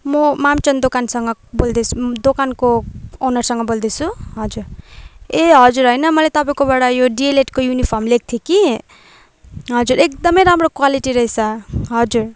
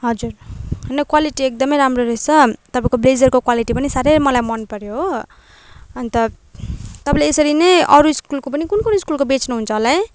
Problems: none marked